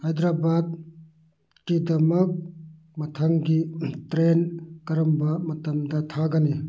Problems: background sounds at intervals